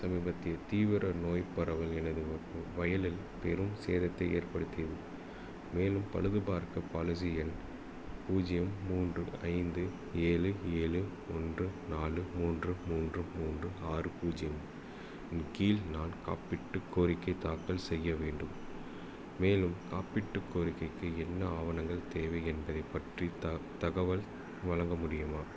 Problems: low volume